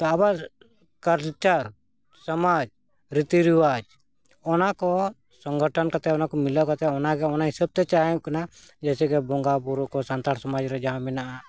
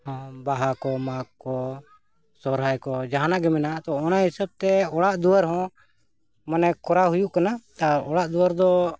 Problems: background conversations at intervals